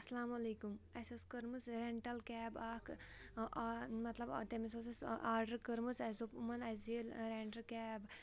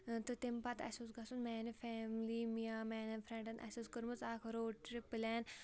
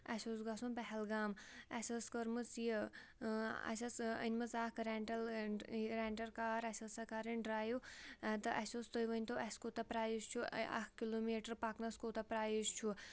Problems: background sounds at intervals